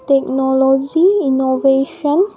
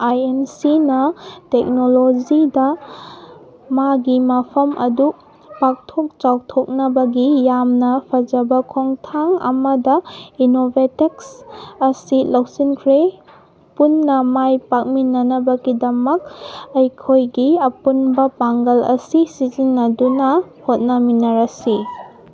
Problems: background sounds at intervals